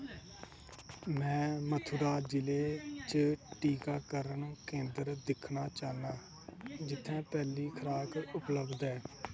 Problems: constant background noise, low volume